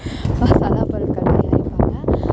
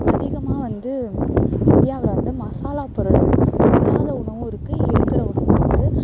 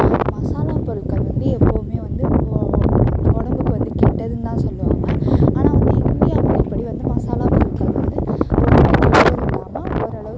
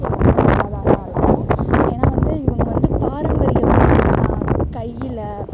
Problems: constant background noise